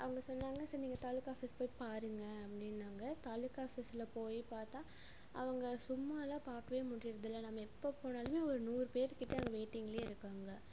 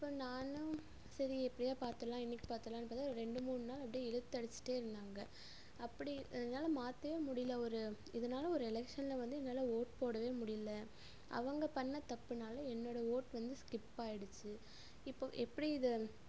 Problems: constant background noise